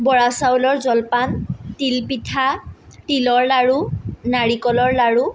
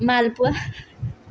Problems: background sounds at intervals